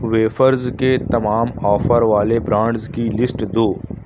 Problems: none marked